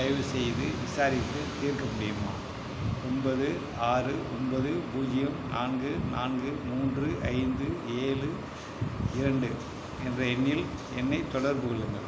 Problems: constant background noise